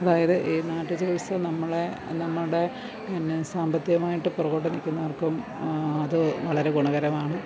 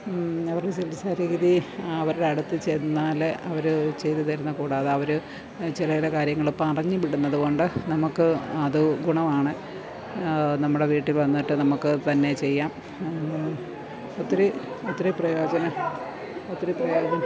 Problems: none marked